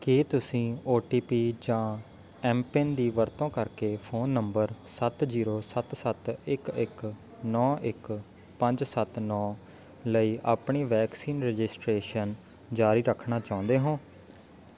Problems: none marked